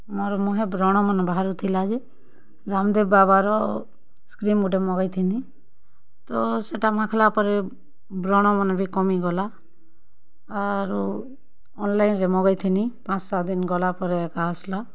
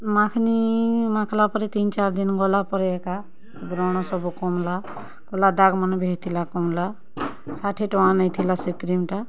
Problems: background sounds at intervals, background conversations at intervals